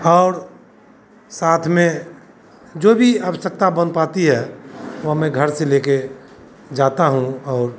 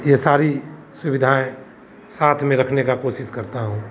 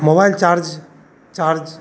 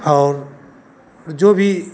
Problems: none marked